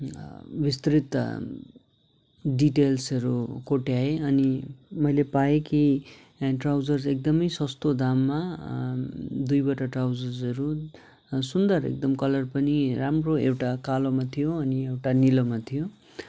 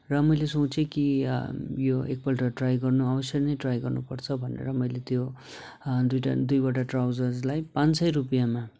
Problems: none marked